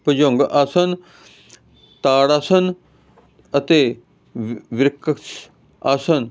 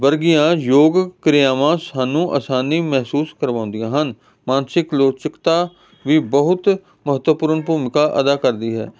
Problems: constant background noise